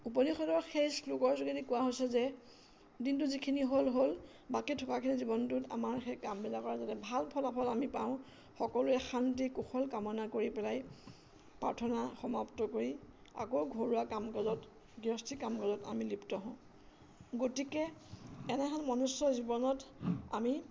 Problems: constant background noise